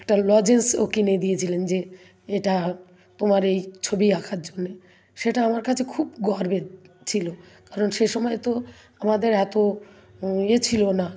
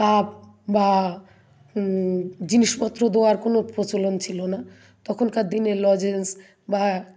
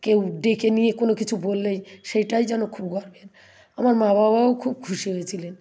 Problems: background sounds at intervals